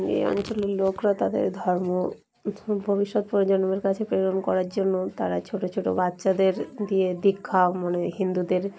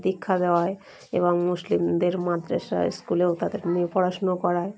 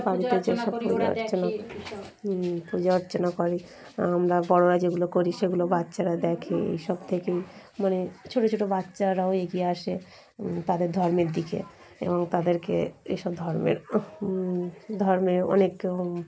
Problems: constant background noise, continuous background conversations